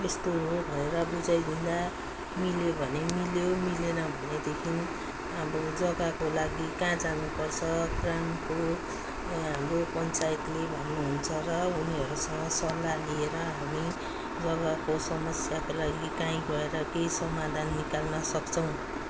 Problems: none marked